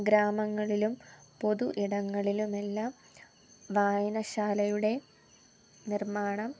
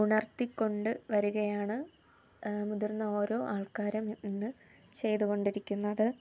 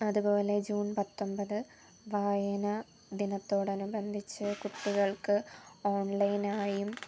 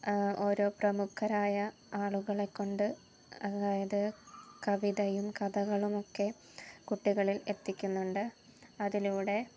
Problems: low volume